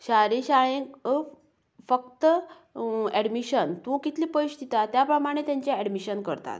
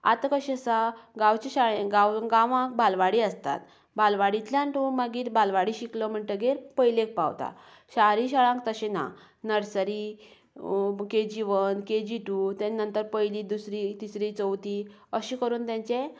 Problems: none marked